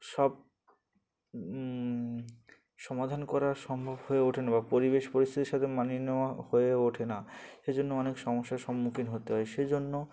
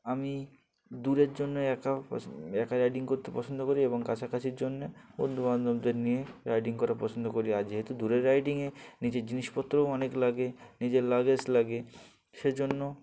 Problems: background sounds at intervals, background conversations at intervals